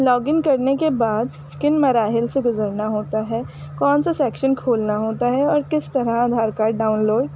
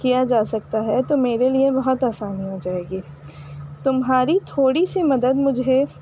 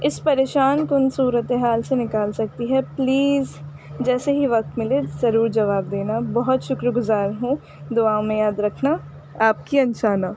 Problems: constant background noise